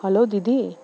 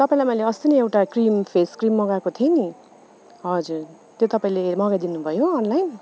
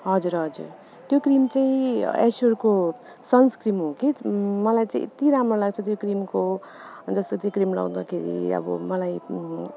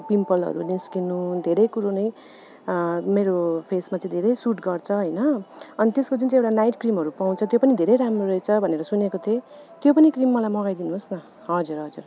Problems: none marked